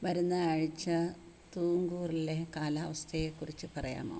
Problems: constant background noise, low volume